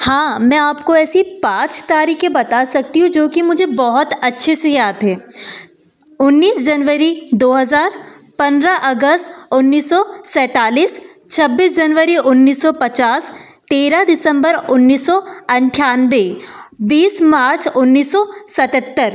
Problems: constant background noise